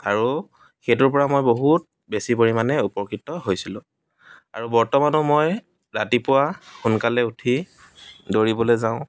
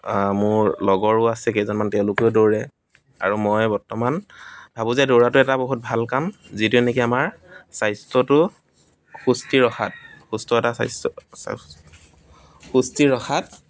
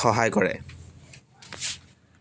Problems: constant background noise, background conversations at intervals